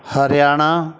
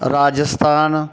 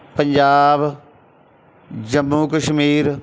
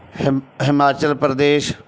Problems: none marked